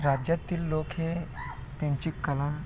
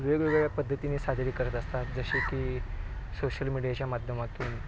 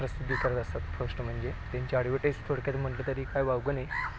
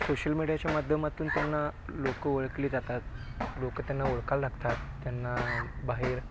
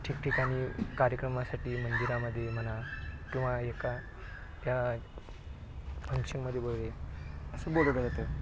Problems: low volume